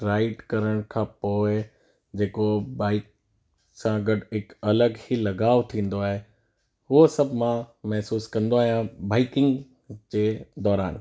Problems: constant background noise